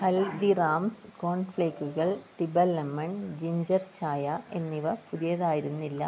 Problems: background sounds at intervals, low volume